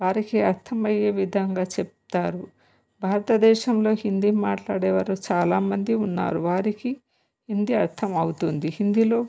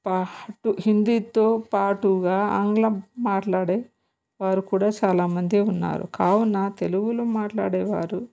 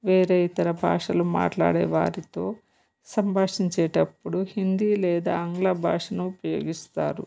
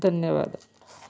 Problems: none marked